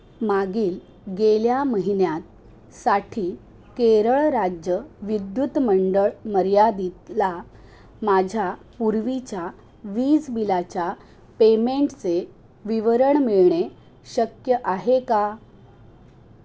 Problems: background sounds at intervals